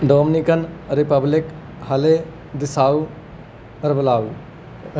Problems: background sounds at intervals